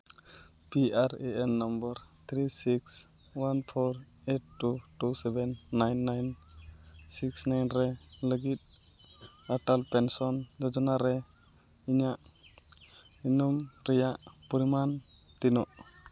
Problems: none marked